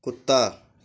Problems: none marked